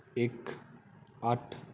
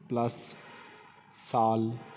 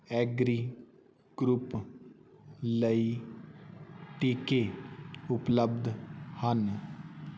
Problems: none marked